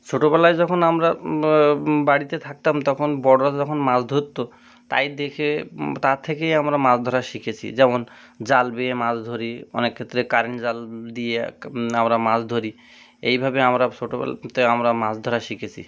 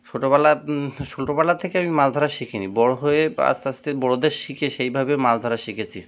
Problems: constant background noise